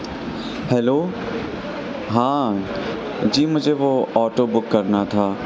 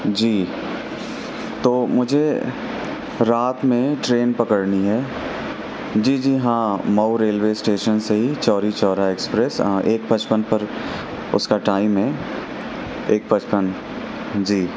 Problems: constant background noise